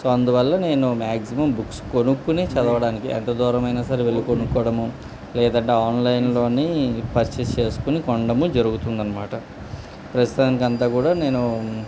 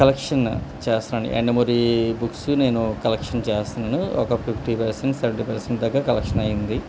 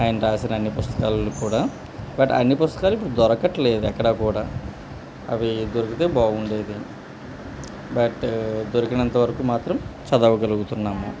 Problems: constant background noise, background conversations at intervals